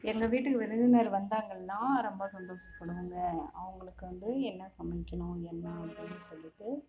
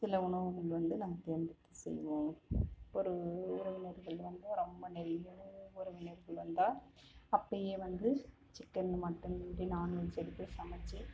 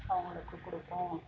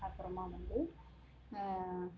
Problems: background sounds at intervals